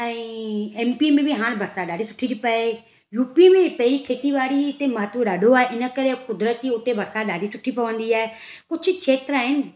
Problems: none marked